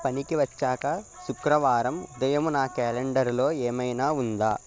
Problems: constant background noise, continuous background conversations